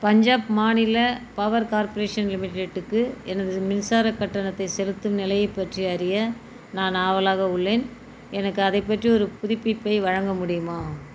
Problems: constant background noise